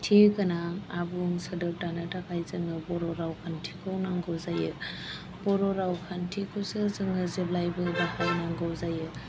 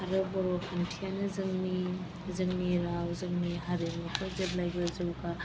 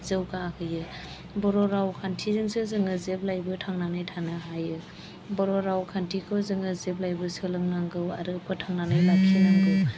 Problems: background sounds at intervals